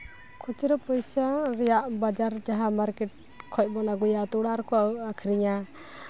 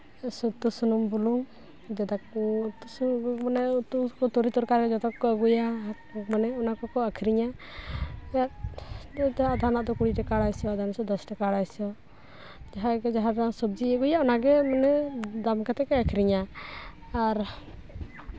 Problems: none marked